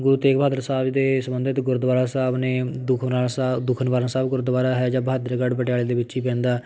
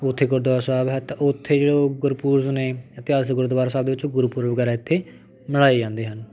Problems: background sounds at intervals, background conversations at intervals